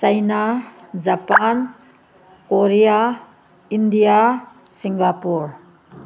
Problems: none marked